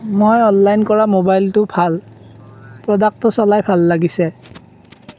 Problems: background sounds at intervals